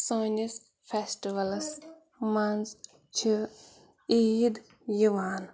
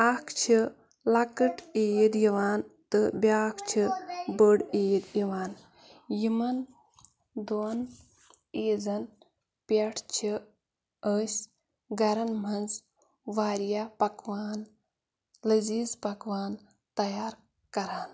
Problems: none marked